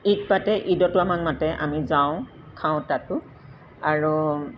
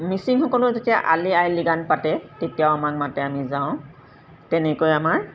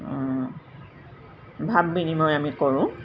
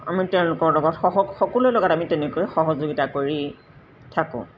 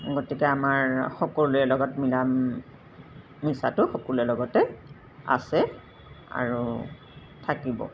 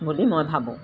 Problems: constant background noise